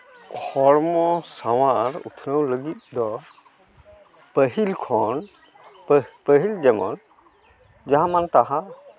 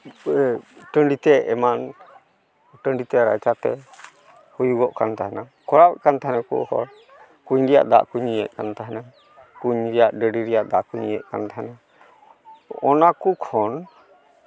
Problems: none marked